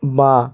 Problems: none marked